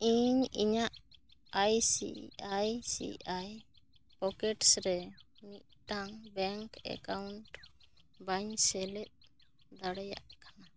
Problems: none marked